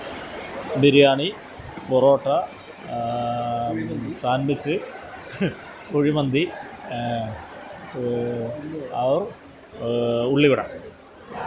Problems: constant background noise, background conversations at intervals